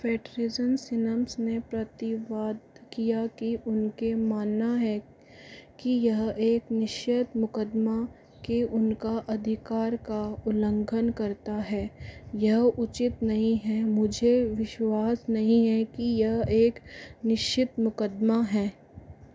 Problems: low volume